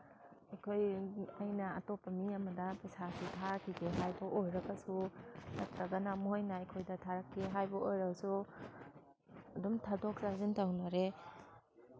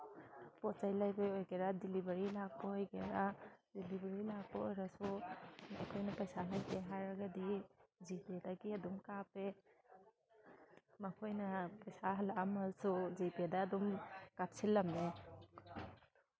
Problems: background sounds at intervals